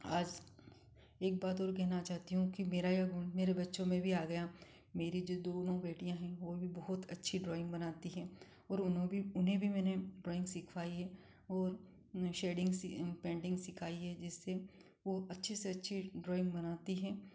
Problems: none marked